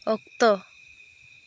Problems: constant background noise